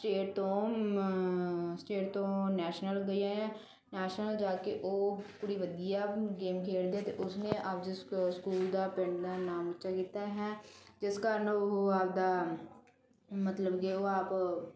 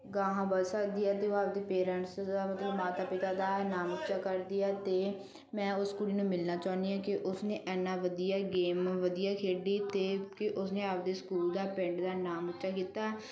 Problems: none marked